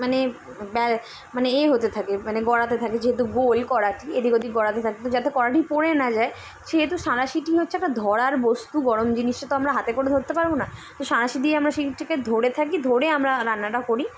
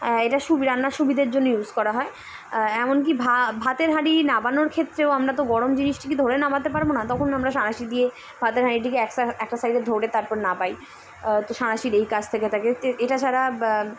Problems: none marked